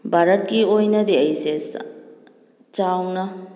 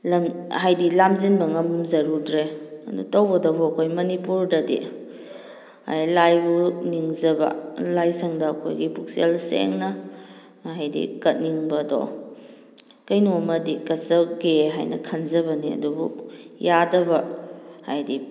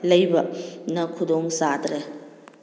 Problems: background conversations at intervals